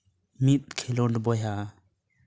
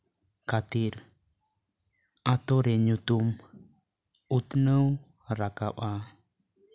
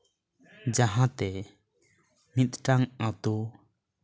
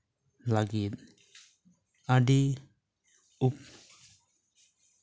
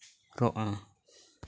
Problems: constant background noise, background conversations at intervals